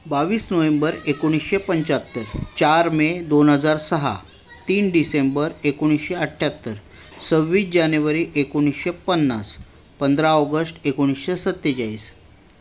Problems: constant background noise, background conversations at intervals